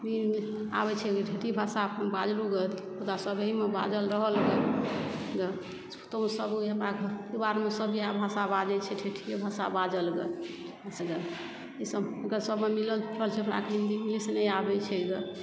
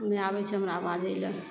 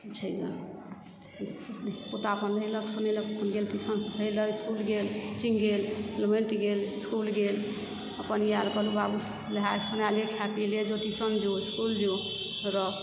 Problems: constant background noise